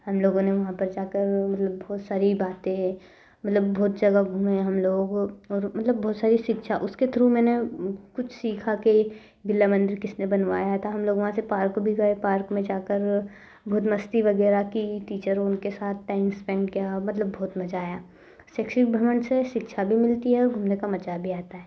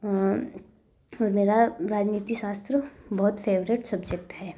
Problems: none marked